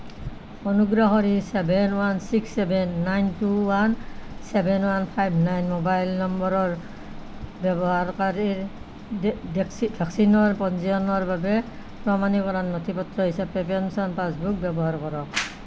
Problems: none marked